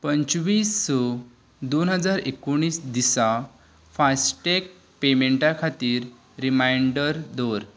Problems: none marked